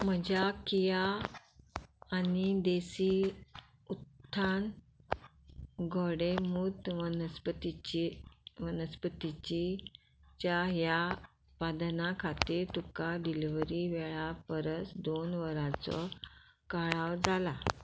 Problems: background sounds at intervals